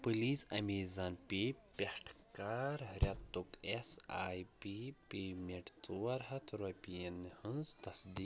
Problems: none marked